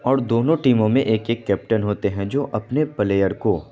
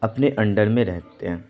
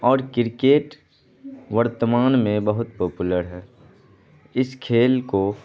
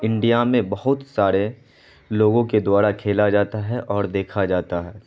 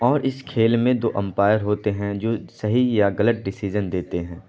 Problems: constant background noise